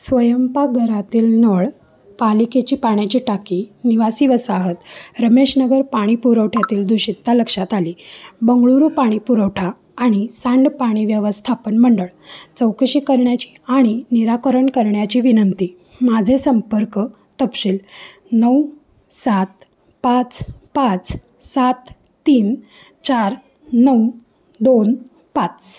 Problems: none marked